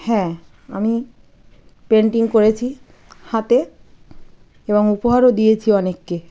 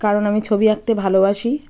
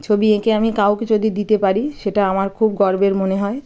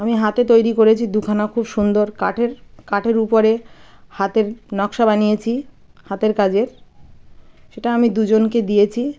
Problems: background sounds at intervals, background conversations at intervals